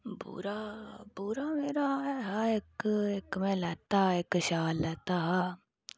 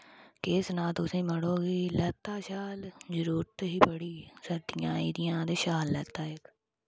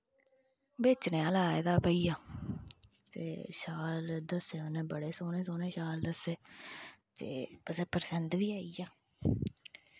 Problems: constant background noise